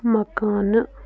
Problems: constant background noise, low volume